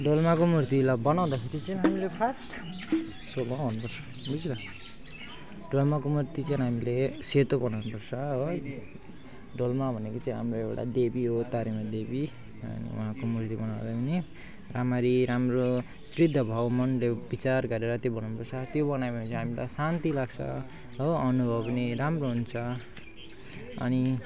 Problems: constant background noise, continuous background conversations